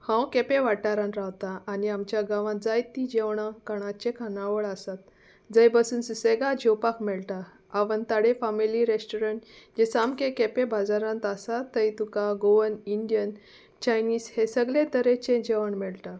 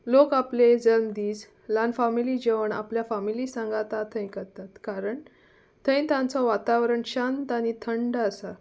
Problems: constant background noise